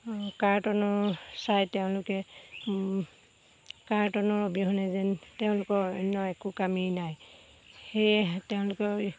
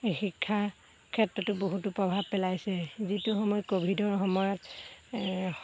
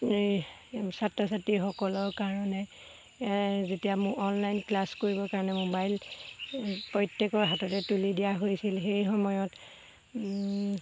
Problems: background sounds at intervals